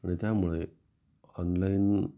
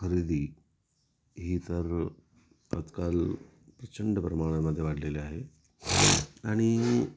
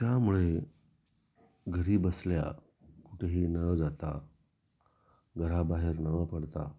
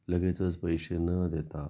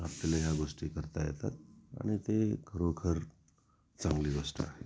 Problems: constant background noise, background conversations at intervals